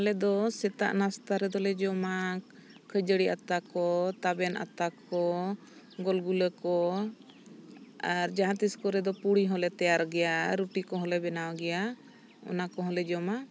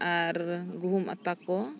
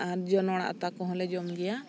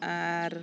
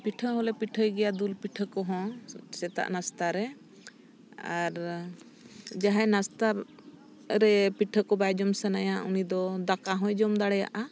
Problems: background conversations at intervals